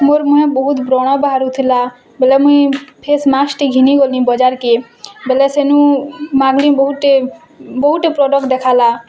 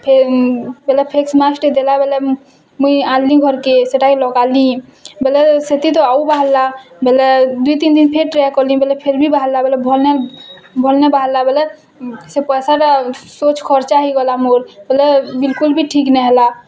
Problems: constant background noise